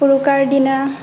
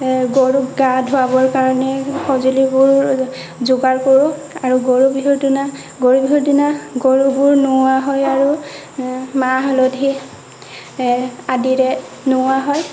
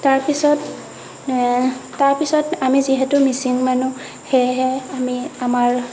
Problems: constant background noise